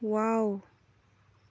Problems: low volume